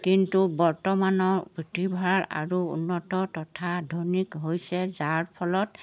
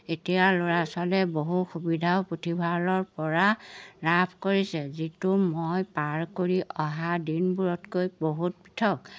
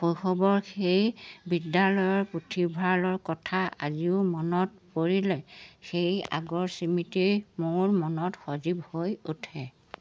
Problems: background sounds at intervals